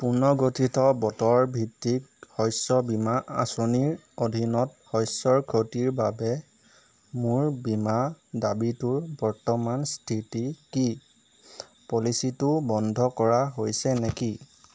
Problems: background sounds at intervals